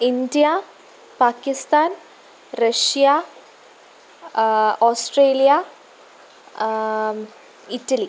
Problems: constant background noise